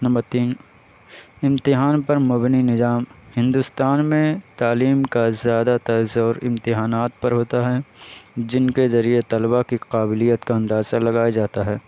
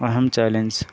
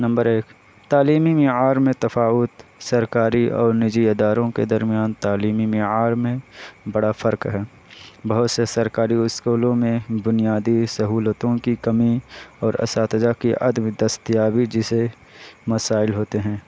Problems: constant background noise